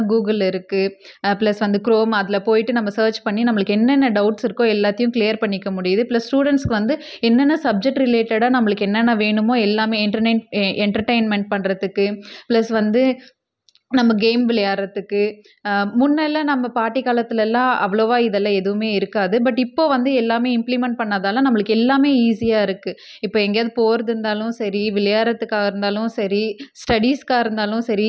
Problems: none marked